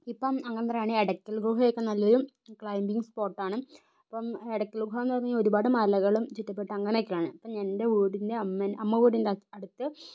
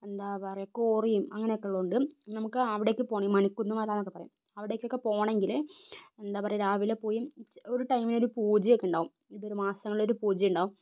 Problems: low volume